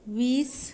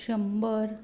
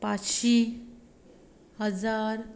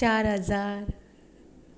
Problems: none marked